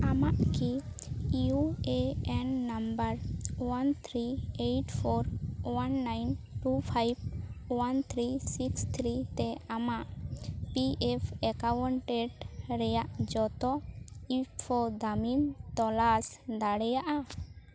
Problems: constant background noise